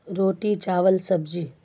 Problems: none marked